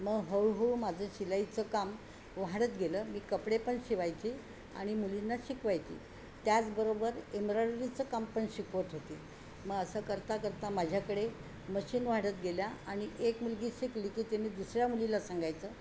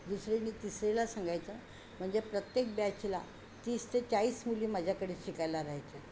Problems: none marked